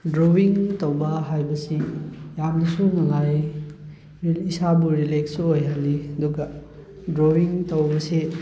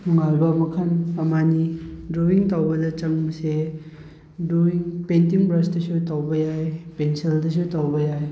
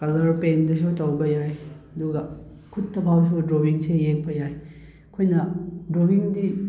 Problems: background conversations at intervals